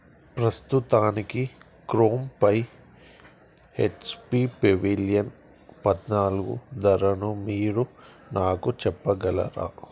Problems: none marked